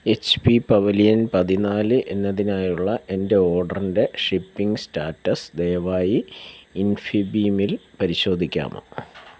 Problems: none marked